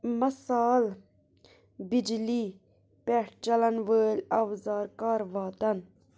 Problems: constant background noise